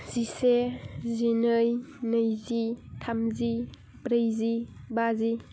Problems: low volume